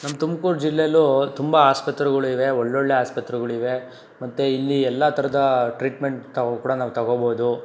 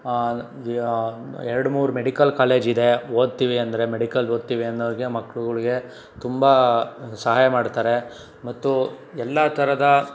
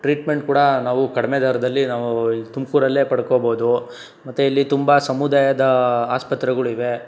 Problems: none marked